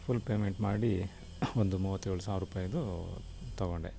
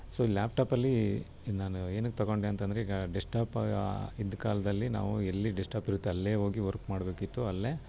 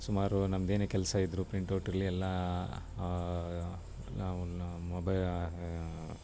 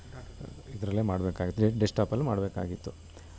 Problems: background sounds at intervals